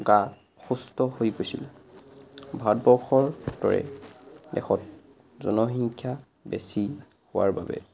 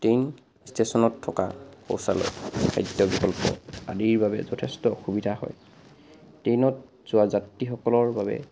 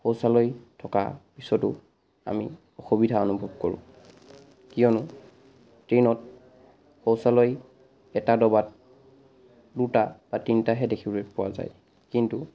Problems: background sounds at intervals